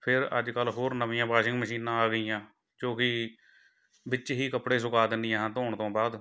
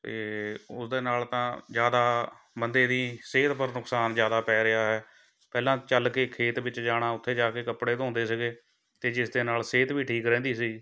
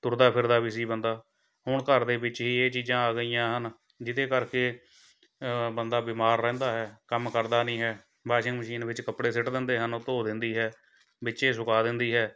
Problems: none marked